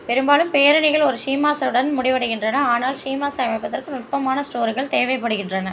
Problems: none marked